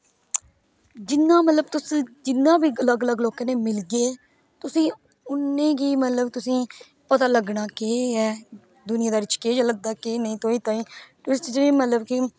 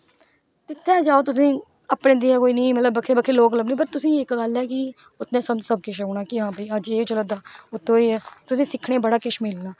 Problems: none marked